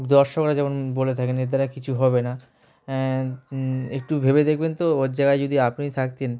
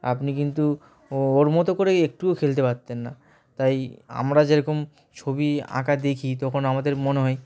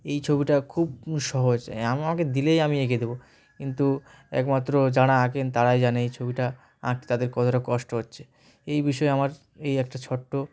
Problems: background sounds at intervals, background conversations at intervals